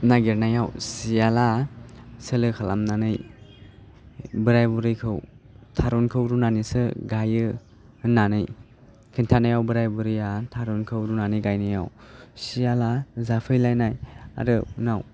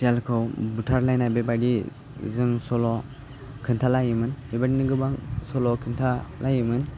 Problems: constant background noise